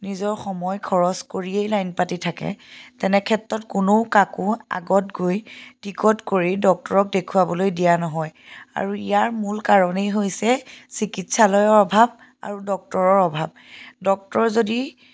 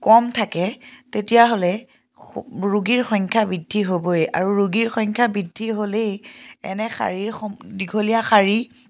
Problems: background sounds at intervals